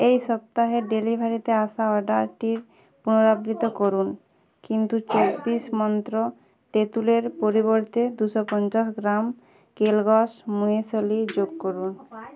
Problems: background sounds at intervals, background conversations at intervals